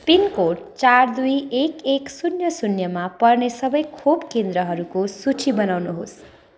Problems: continuous background conversations